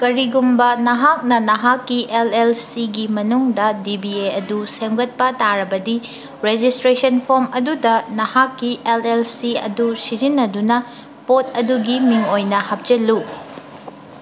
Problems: background conversations at intervals